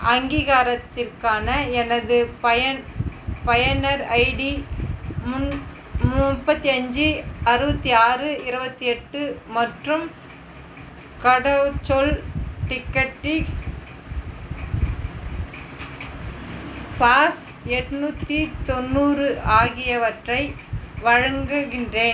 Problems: constant background noise